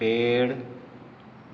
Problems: none marked